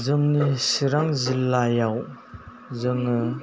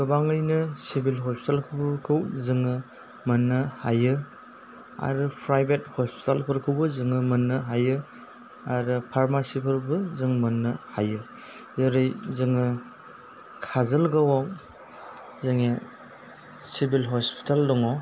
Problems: low volume